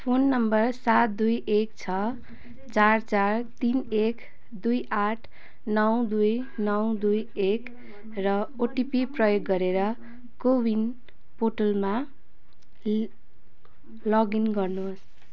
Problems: background conversations at intervals